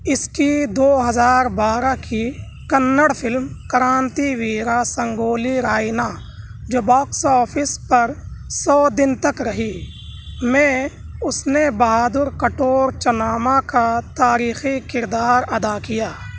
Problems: constant background noise, background conversations at intervals